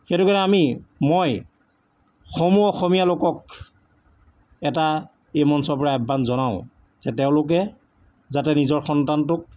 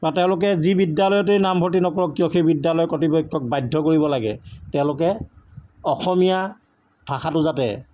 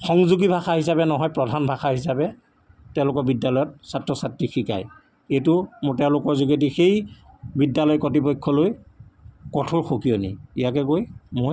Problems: none marked